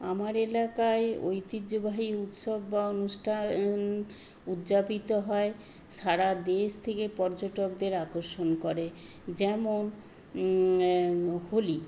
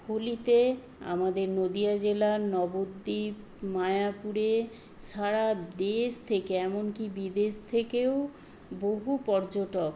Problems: constant background noise